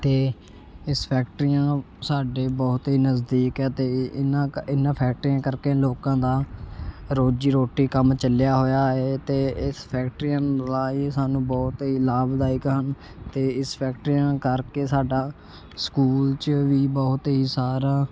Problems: constant background noise